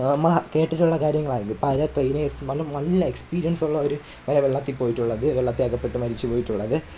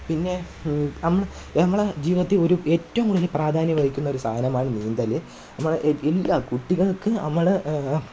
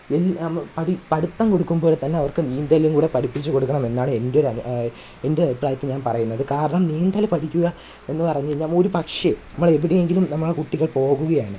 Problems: background sounds at intervals